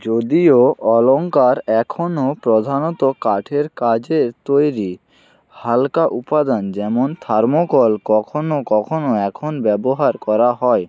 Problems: constant background noise